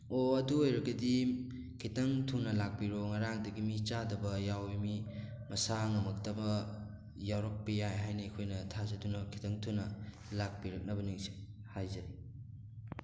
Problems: background sounds at intervals